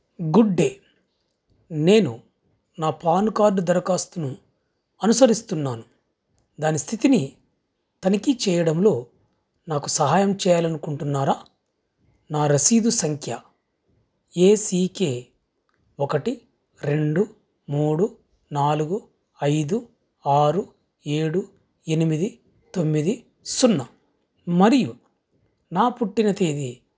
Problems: none marked